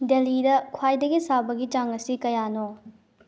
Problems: low volume